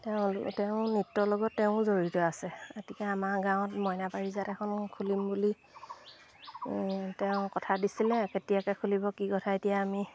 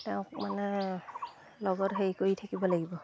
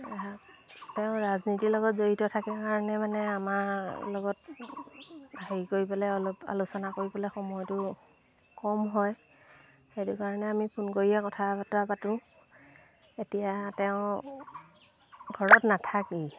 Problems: constant background noise, background conversations at intervals